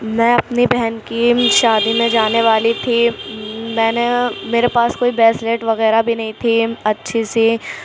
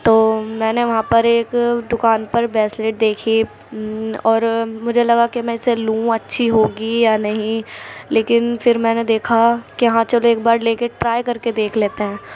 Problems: constant background noise